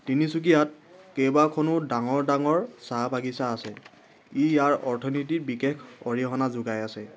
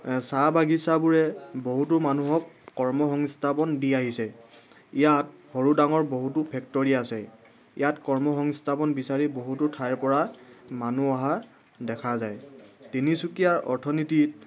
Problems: background sounds at intervals